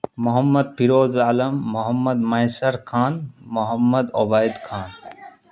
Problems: constant background noise